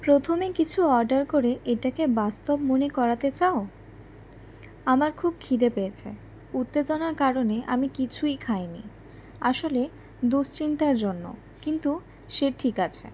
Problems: constant background noise